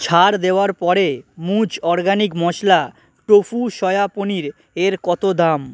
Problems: constant background noise